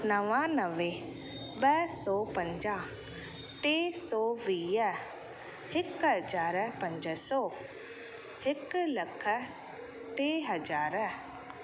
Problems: constant background noise